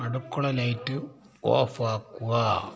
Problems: background conversations at intervals